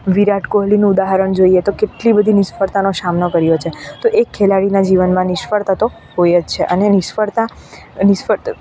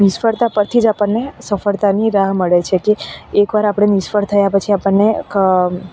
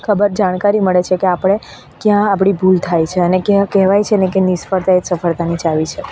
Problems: none marked